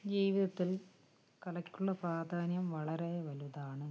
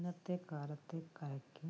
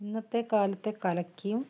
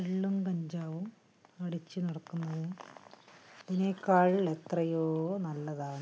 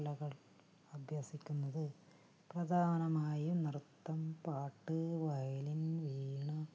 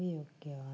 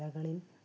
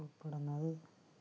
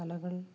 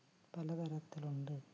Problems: background conversations at intervals